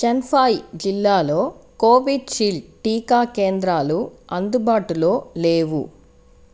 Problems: constant background noise